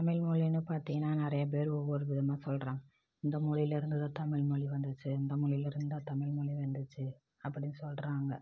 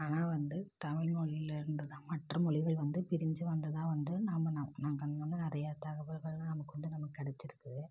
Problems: low volume